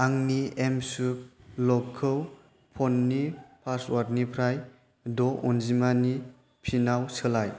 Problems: constant background noise